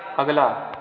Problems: none marked